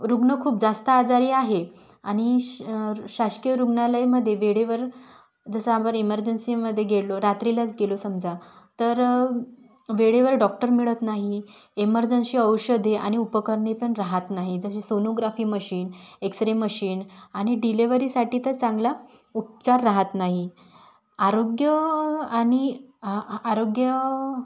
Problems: none marked